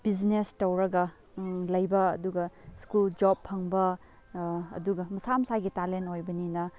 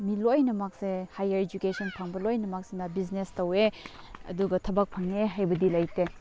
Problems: background sounds at intervals, background conversations at intervals